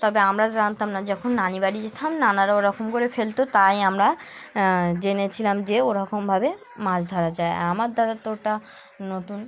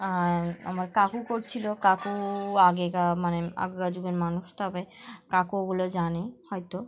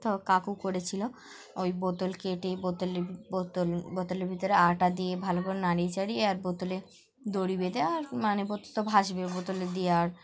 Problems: background sounds at intervals